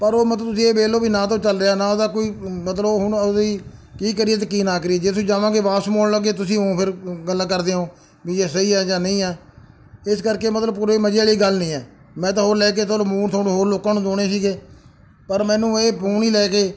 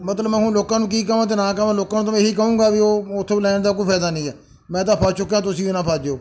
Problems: background sounds at intervals